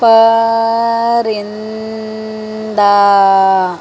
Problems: constant background noise